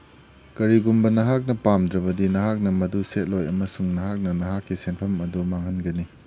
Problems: none marked